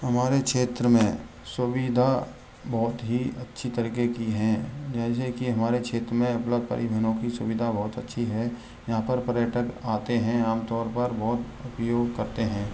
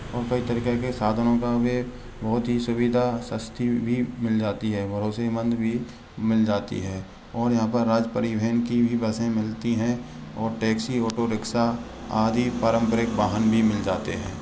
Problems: constant background noise